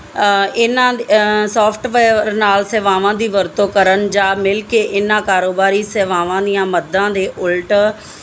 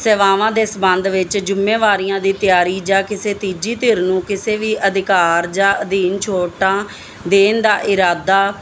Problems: background sounds at intervals